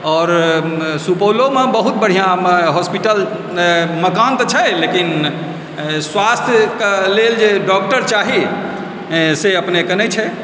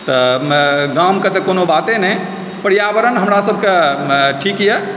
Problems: constant background noise